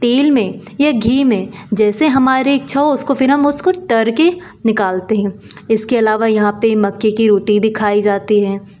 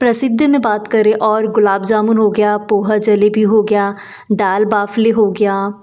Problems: none marked